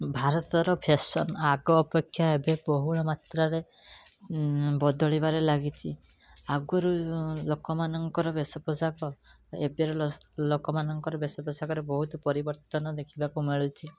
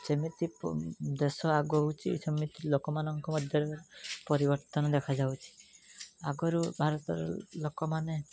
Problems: background sounds at intervals